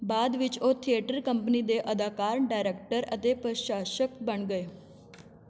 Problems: continuous background conversations